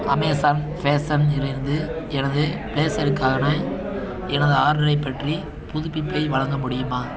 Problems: continuous background conversations